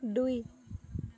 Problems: continuous background conversations